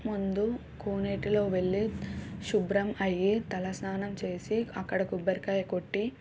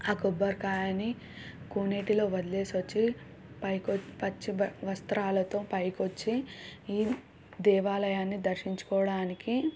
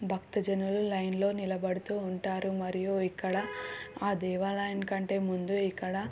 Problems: none marked